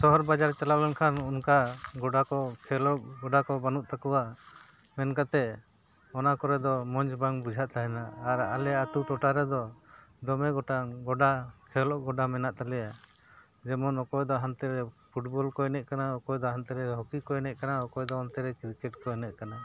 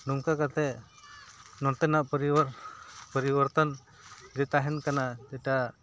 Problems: background sounds at intervals